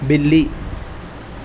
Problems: constant background noise